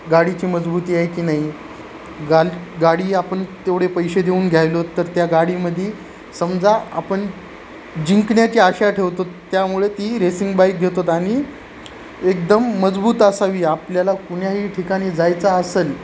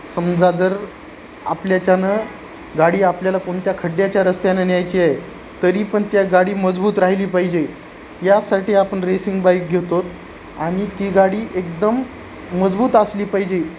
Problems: constant background noise